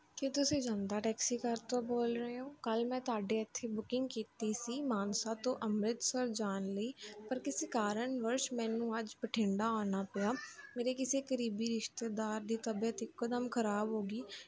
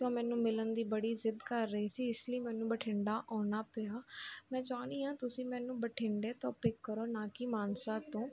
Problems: constant background noise